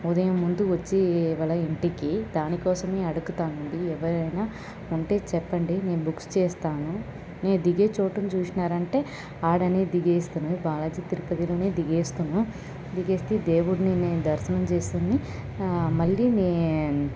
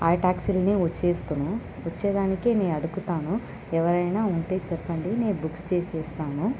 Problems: constant background noise, background conversations at intervals